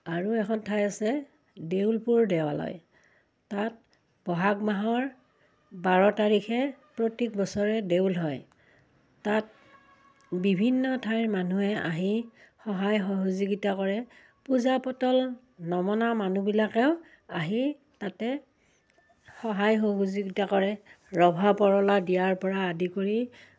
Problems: none marked